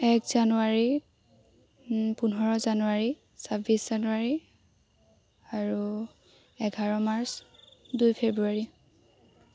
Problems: constant background noise